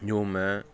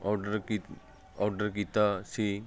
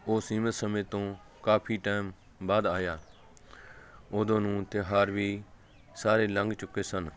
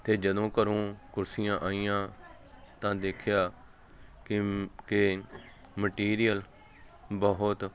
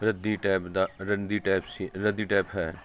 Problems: none marked